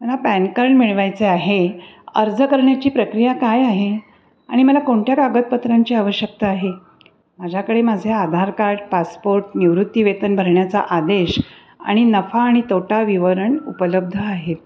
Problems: constant background noise